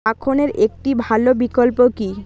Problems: continuous background conversations